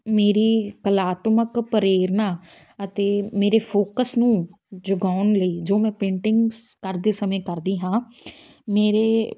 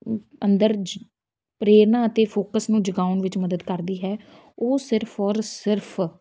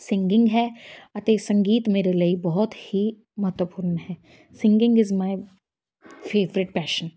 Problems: background sounds at intervals